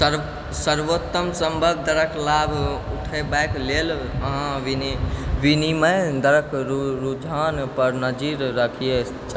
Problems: background sounds at intervals